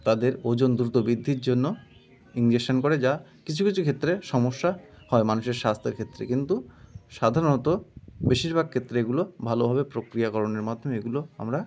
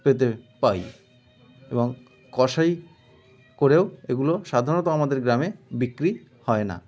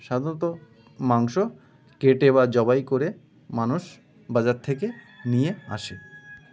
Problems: constant background noise, continuous background conversations